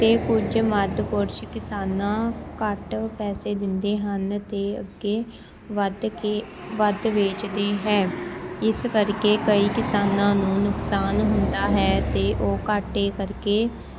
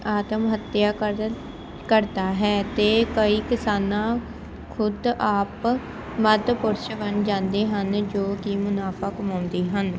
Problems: constant background noise, background conversations at intervals